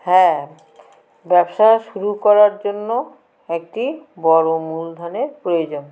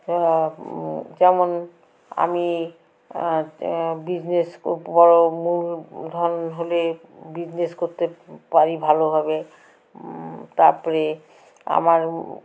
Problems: background sounds at intervals, continuous background conversations